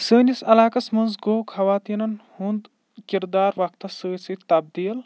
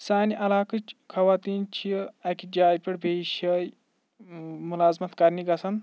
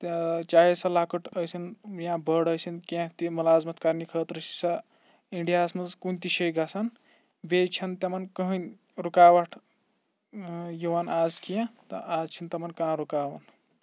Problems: background sounds at intervals